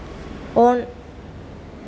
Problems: constant background noise